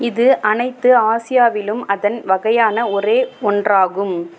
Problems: constant background noise